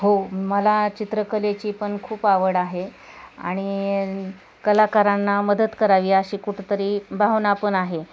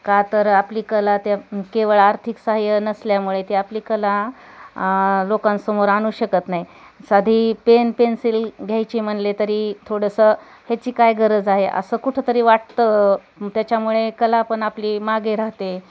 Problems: constant background noise, continuous background conversations